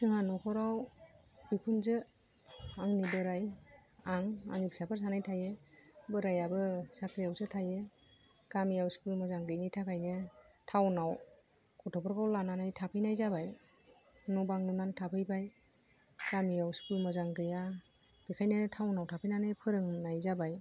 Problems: low volume